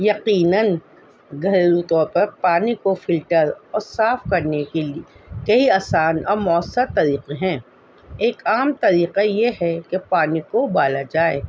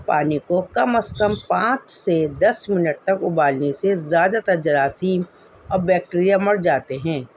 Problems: constant background noise